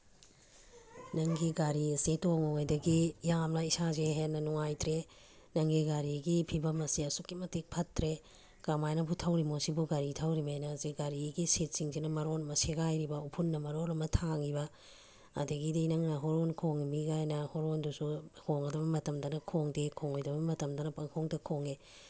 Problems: background sounds at intervals